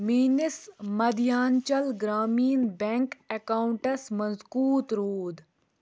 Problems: constant background noise